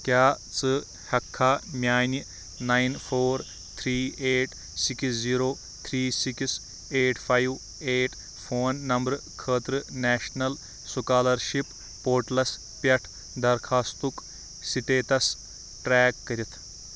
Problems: background sounds at intervals